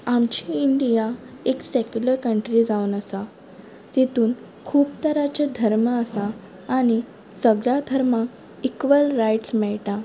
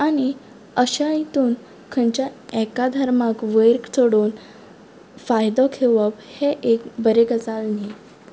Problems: background sounds at intervals